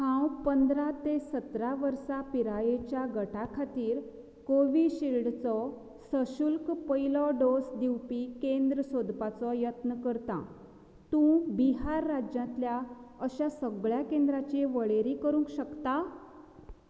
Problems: low volume